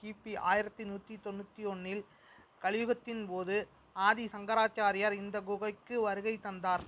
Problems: background sounds at intervals